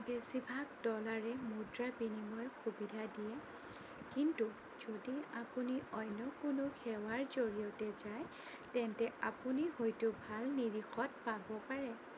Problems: constant background noise, low volume